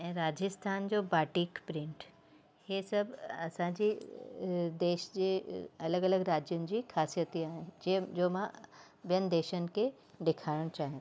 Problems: constant background noise